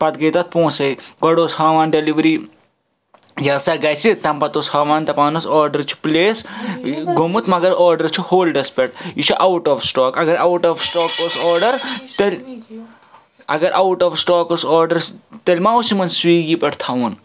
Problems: constant background noise, background conversations at intervals